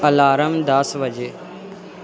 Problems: constant background noise